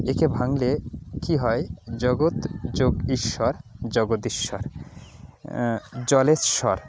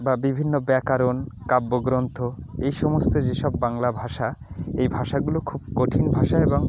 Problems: none marked